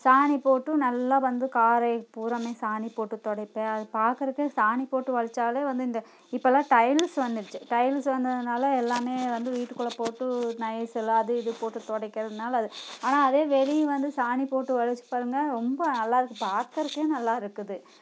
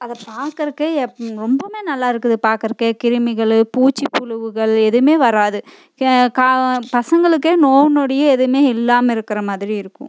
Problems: constant background noise